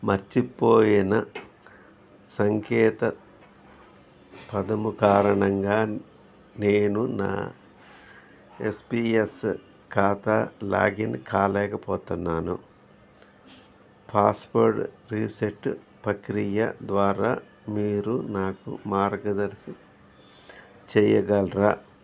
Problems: none marked